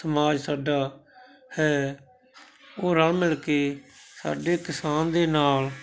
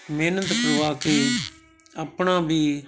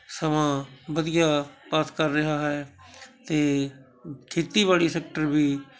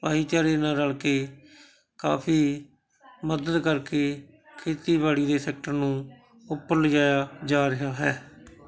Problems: constant background noise